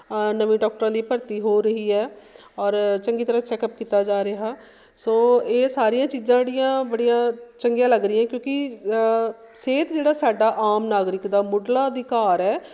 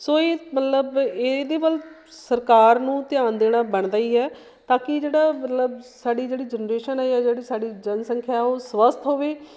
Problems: constant background noise